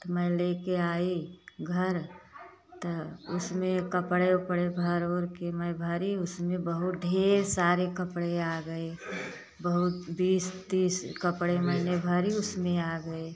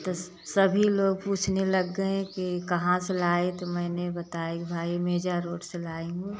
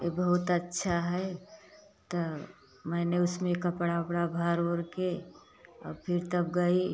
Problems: constant background noise